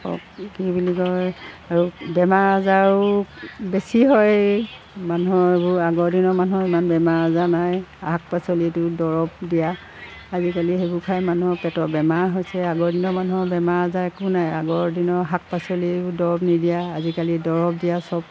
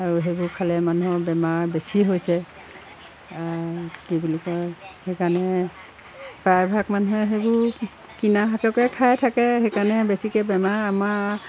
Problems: constant background noise